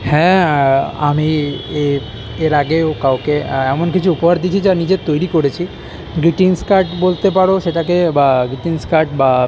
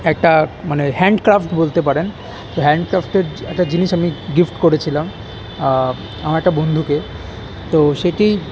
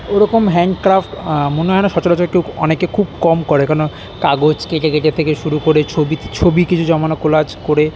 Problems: background sounds at intervals, continuous background conversations